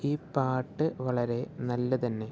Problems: low volume